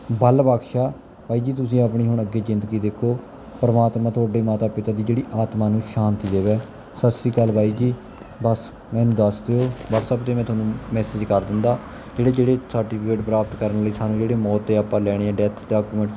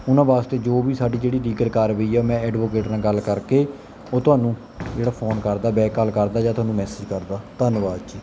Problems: background sounds at intervals